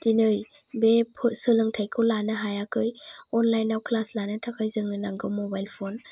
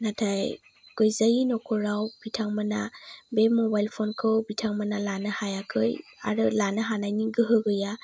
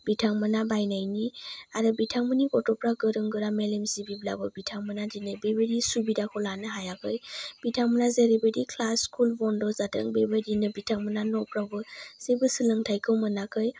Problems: none marked